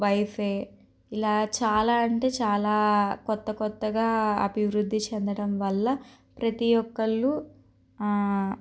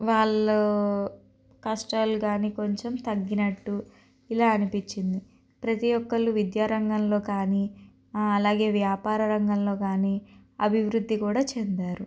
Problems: constant background noise